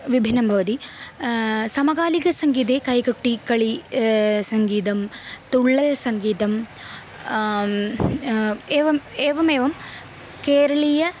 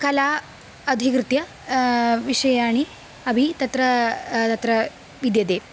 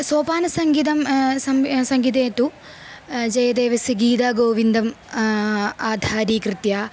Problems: constant background noise